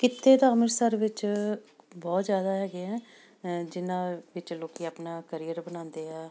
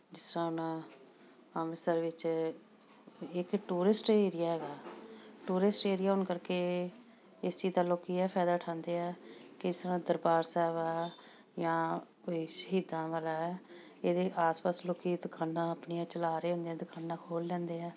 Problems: background sounds at intervals